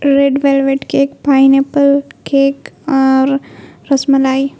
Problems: constant background noise